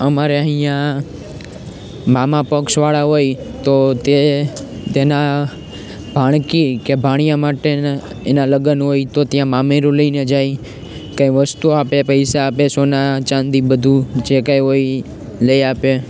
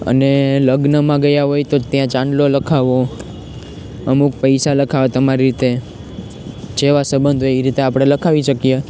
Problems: constant background noise